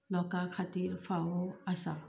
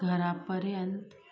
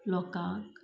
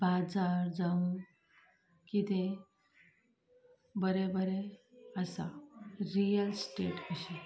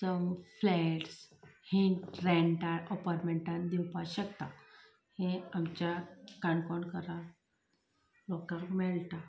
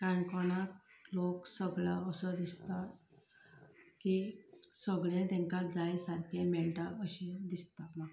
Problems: background conversations at intervals, low volume